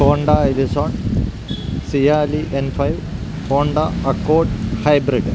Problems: constant background noise